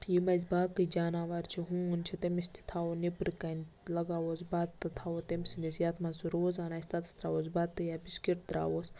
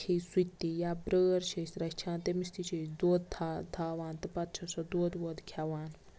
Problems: none marked